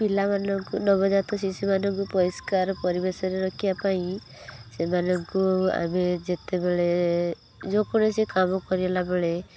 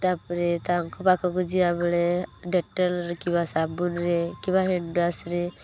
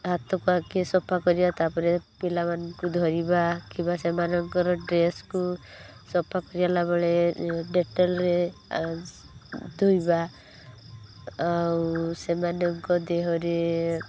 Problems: constant background noise